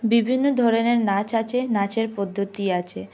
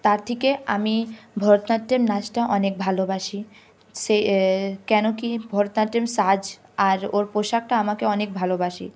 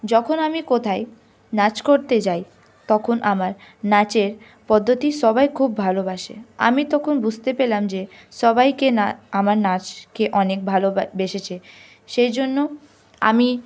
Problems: background sounds at intervals